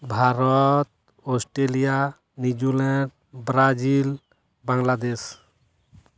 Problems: none marked